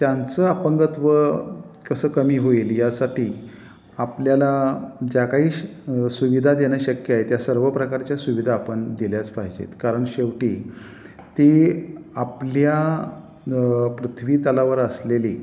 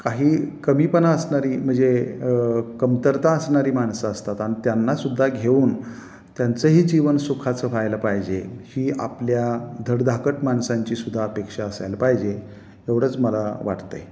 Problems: constant background noise